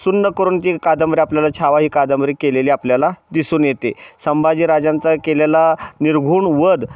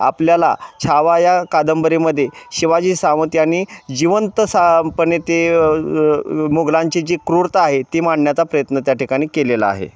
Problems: none marked